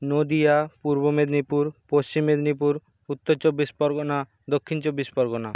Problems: constant background noise